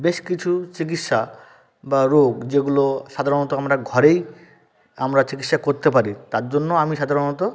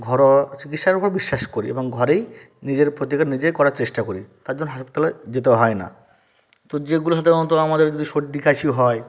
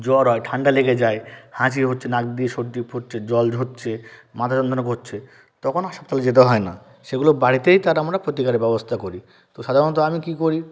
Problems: background conversations at intervals